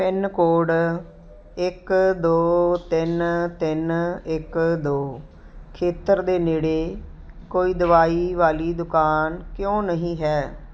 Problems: none marked